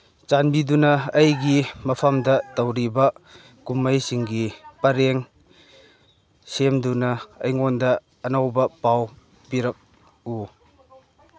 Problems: none marked